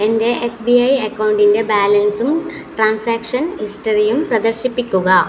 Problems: constant background noise